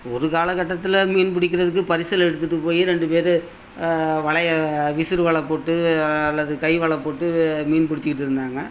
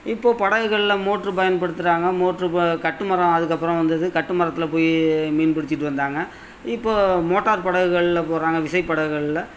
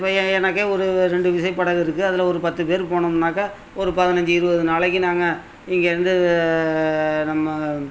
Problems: constant background noise